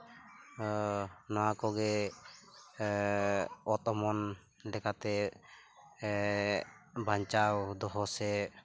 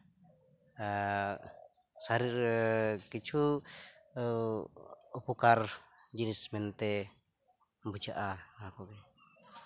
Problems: constant background noise, background conversations at intervals